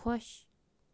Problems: background sounds at intervals